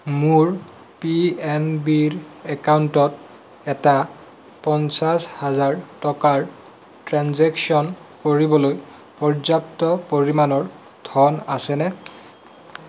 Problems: background sounds at intervals